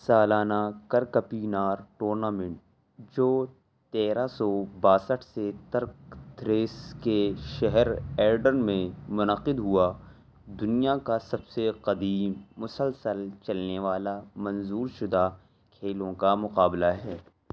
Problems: none marked